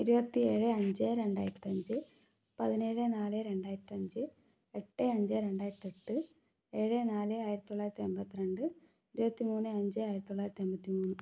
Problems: low volume